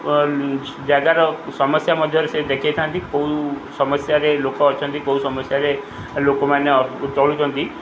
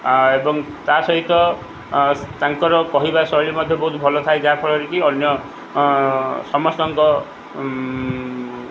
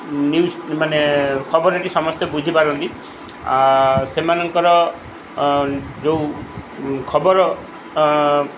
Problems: none marked